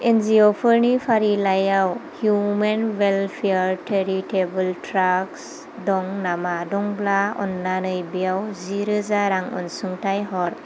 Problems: constant background noise